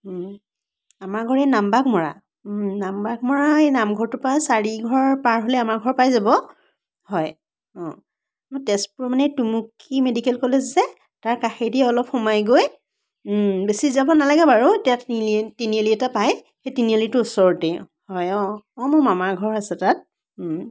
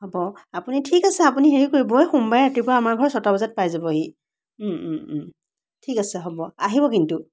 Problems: none marked